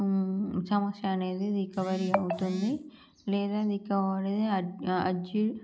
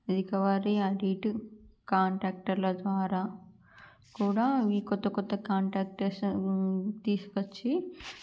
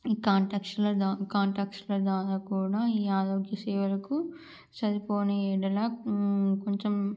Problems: low volume